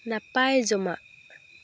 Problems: background sounds at intervals